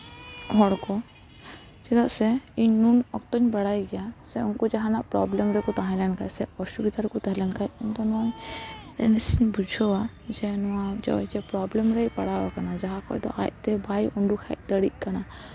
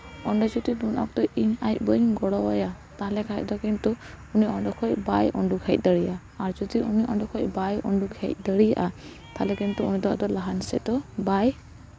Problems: background sounds at intervals